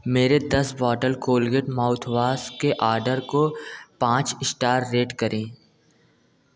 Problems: background sounds at intervals